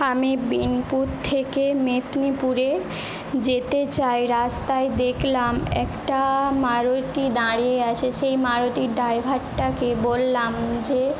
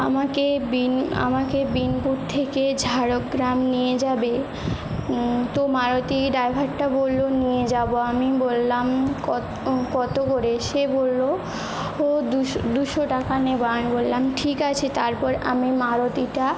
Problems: constant background noise